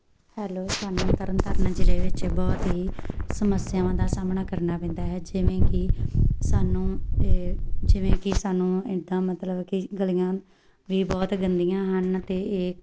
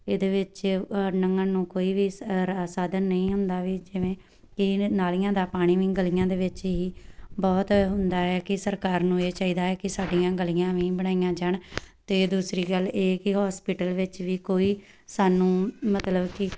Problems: background sounds at intervals